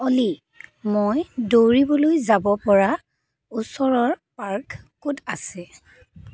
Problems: none marked